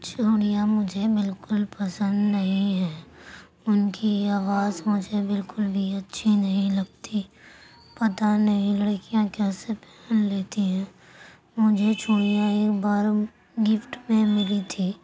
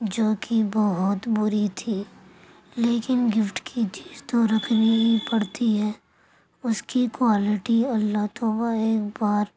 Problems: constant background noise, low volume